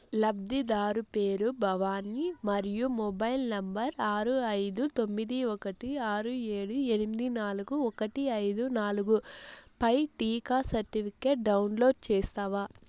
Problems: constant background noise